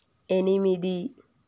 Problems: none marked